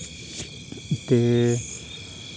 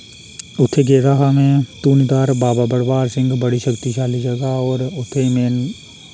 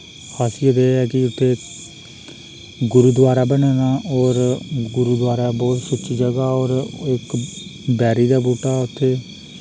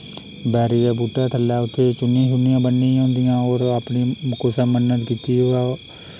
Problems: none marked